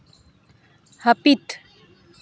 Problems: none marked